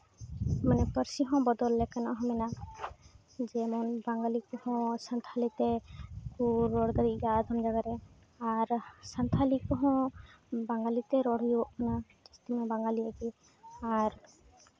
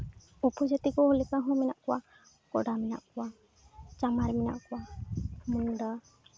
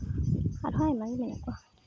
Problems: constant background noise